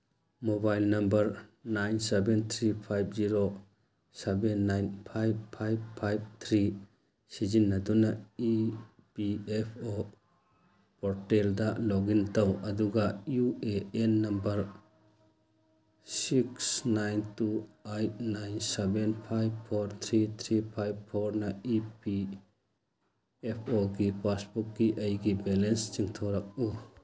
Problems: background sounds at intervals